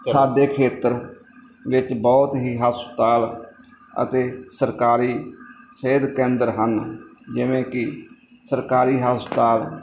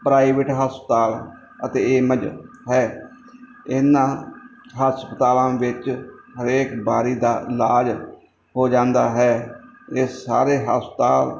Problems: background sounds at intervals